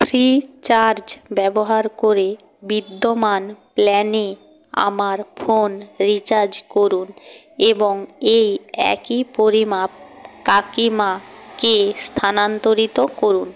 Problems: constant background noise